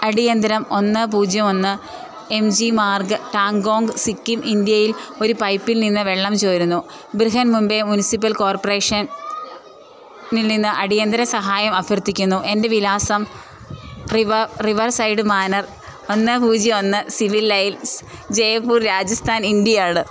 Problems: constant background noise